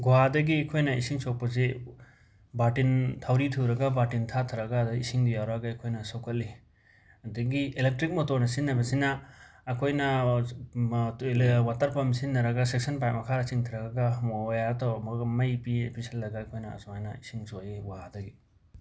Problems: background sounds at intervals